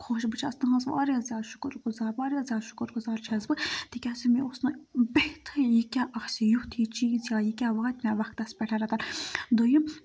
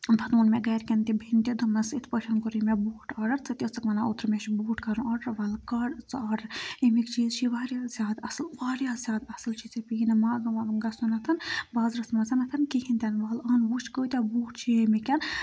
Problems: background sounds at intervals